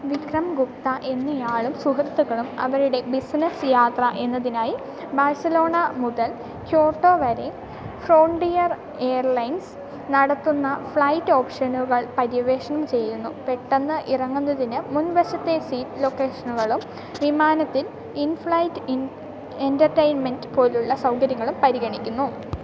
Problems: constant background noise, low volume